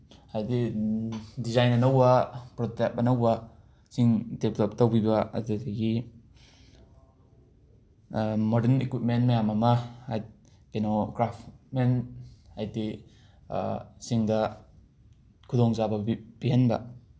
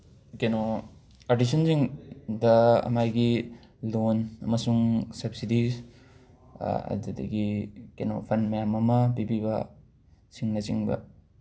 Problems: background sounds at intervals